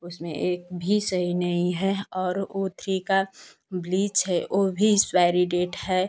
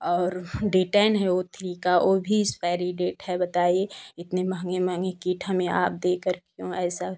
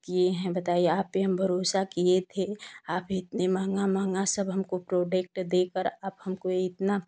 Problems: constant background noise